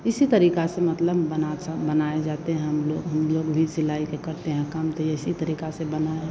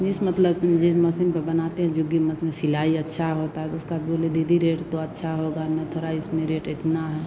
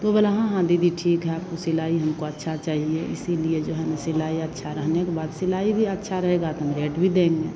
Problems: constant background noise